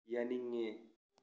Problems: low volume